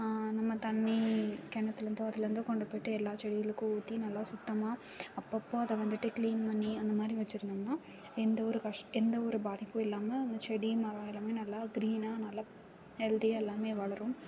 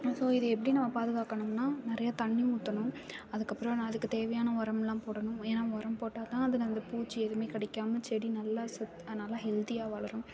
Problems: background sounds at intervals, background conversations at intervals